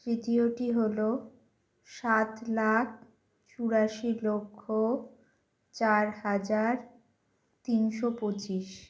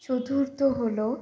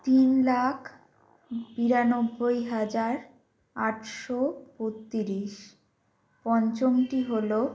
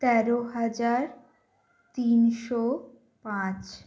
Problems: constant background noise